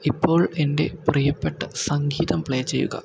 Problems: low volume